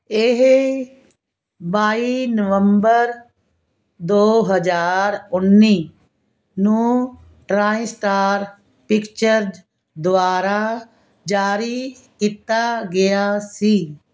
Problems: constant background noise